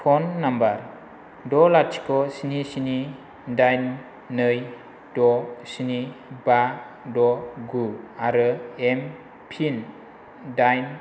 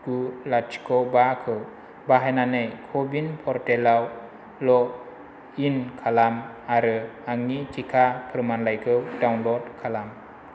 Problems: constant background noise